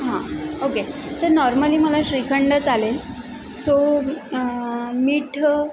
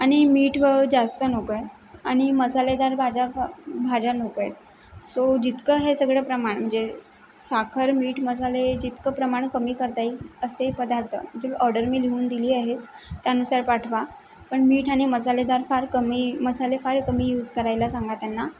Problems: constant background noise